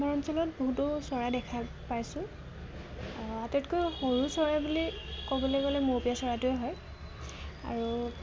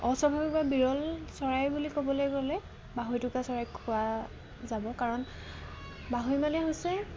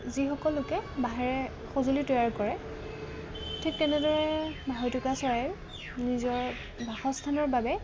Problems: none marked